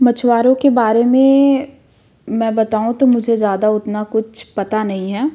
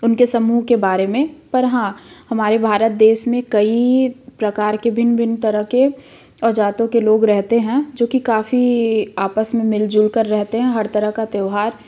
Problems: none marked